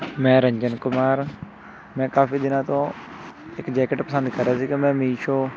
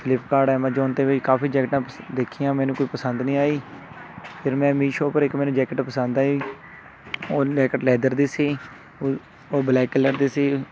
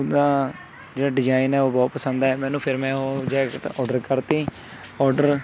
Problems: constant background noise, background conversations at intervals